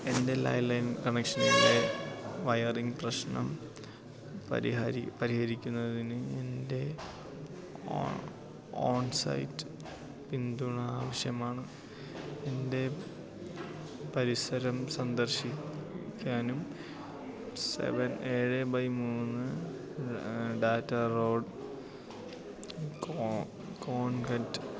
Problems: constant background noise, low volume